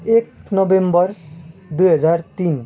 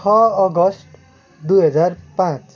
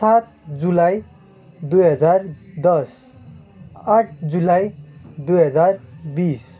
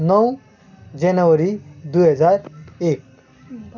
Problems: constant background noise, background conversations at intervals